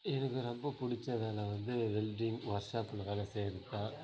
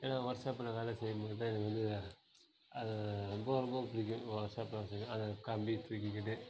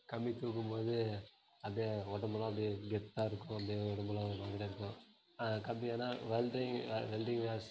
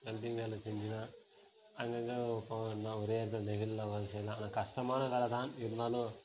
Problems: none marked